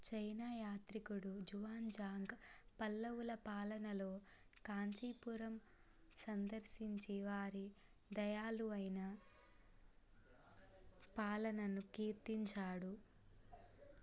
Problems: low volume